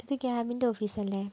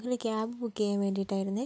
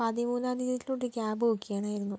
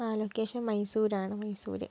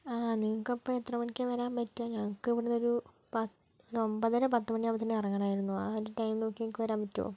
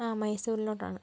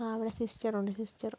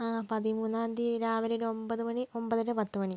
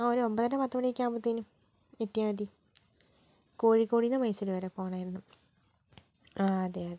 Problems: low volume